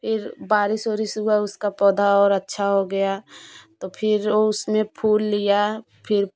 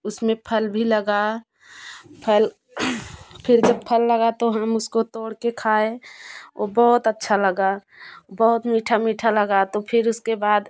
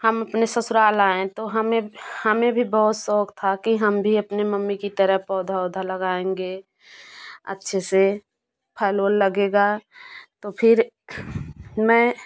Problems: none marked